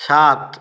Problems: none marked